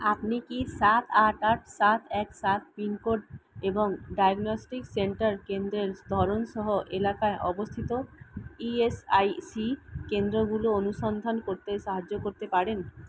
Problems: constant background noise